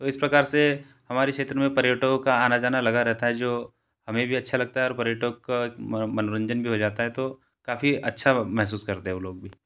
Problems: constant background noise